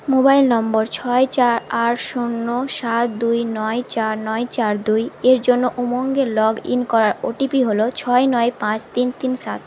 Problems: constant background noise